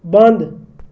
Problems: none marked